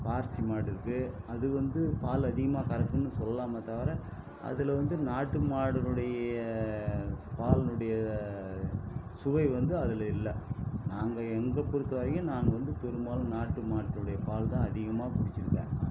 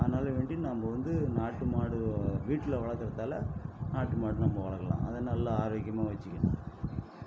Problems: constant background noise, low volume